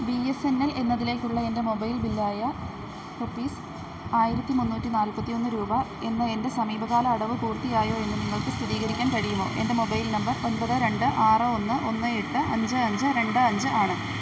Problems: constant background noise